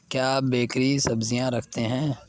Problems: background sounds at intervals